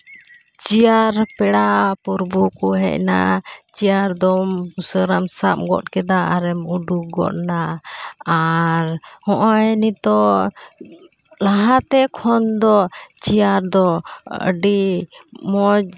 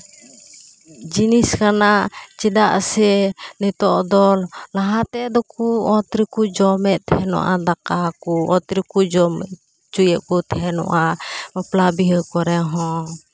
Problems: none marked